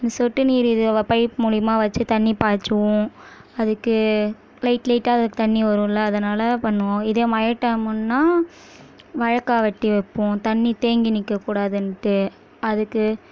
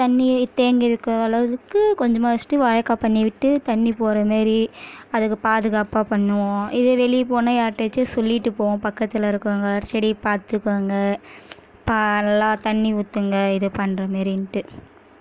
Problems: none marked